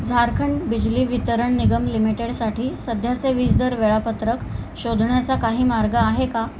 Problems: none marked